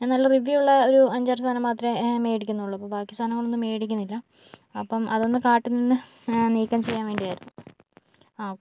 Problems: none marked